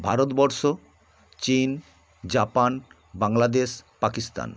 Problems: none marked